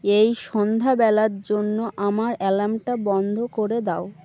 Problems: constant background noise